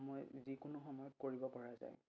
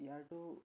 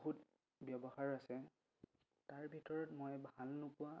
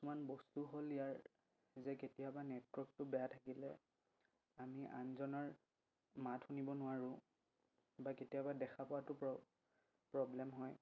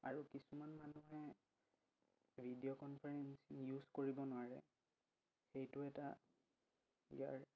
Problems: low volume